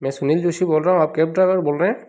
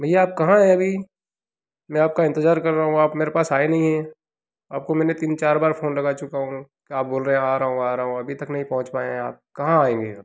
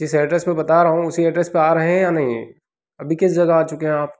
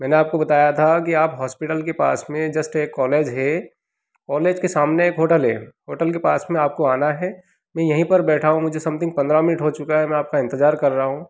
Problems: background sounds at intervals